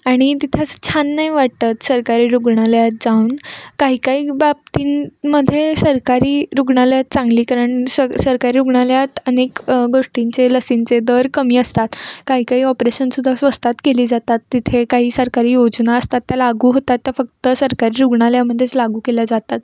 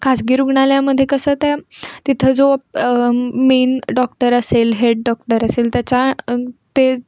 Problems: background sounds at intervals